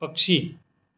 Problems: constant background noise